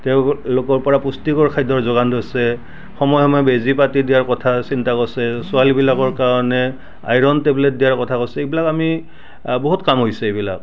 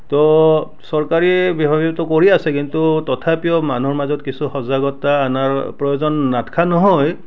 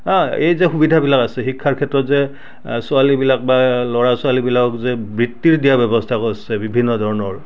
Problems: none marked